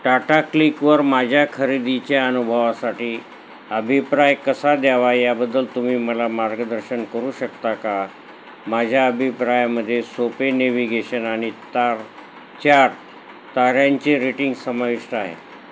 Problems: constant background noise